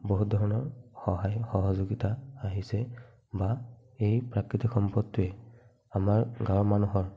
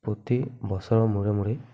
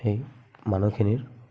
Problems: none marked